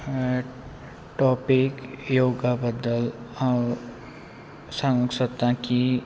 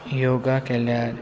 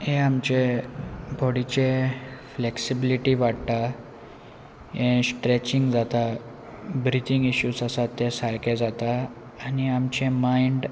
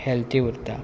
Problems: constant background noise